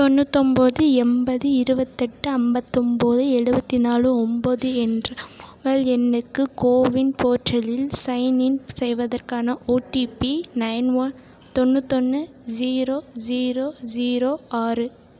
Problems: none marked